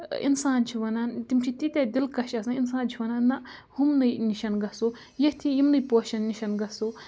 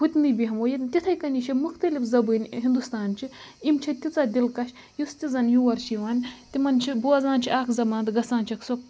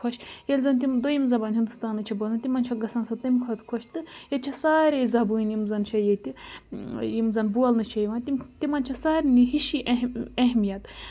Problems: constant background noise